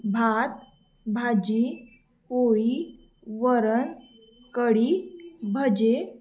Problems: background sounds at intervals